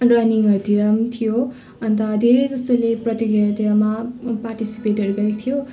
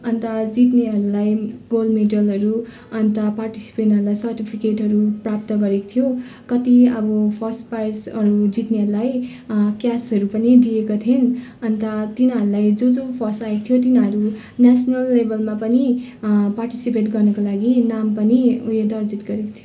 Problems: constant background noise, continuous background conversations